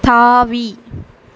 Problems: constant background noise